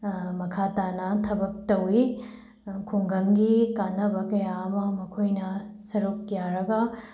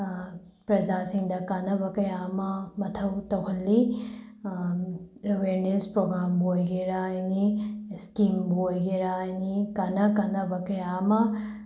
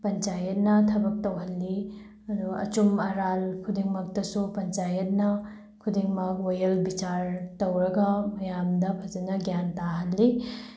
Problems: background sounds at intervals